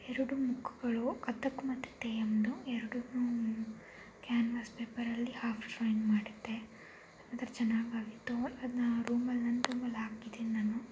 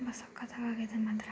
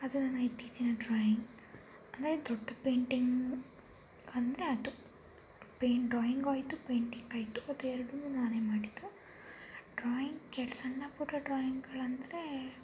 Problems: low volume